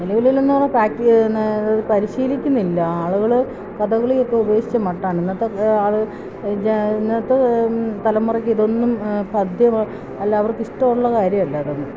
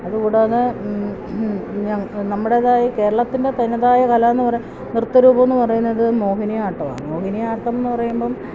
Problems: none marked